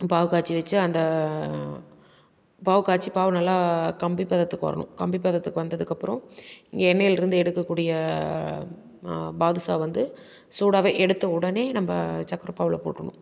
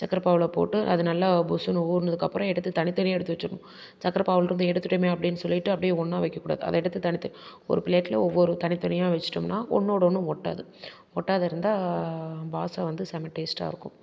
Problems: constant background noise